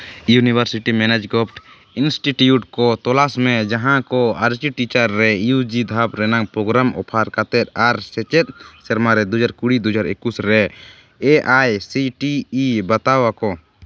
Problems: constant background noise